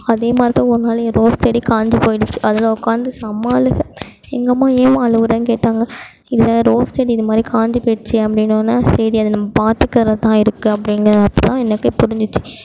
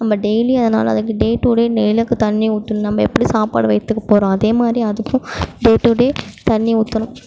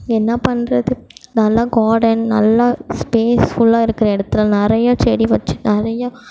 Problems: background sounds at intervals